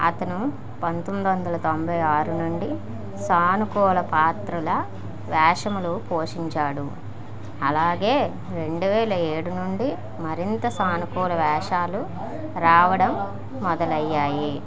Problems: continuous background conversations